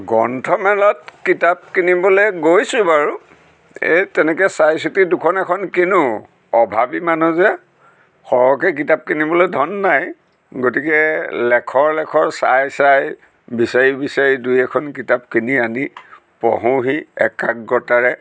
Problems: none marked